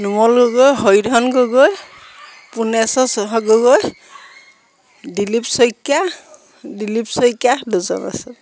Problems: none marked